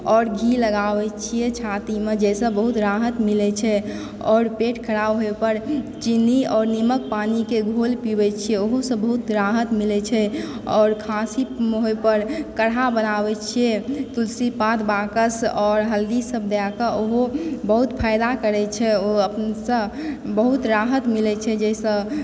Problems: background sounds at intervals